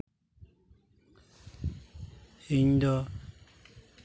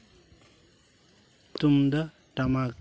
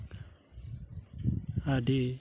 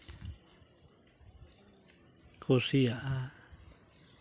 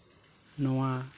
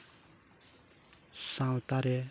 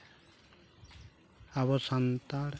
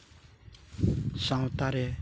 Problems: background sounds at intervals